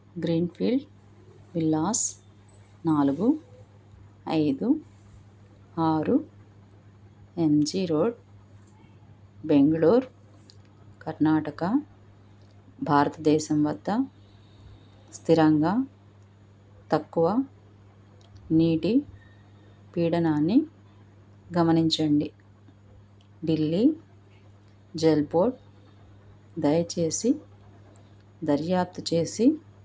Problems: none marked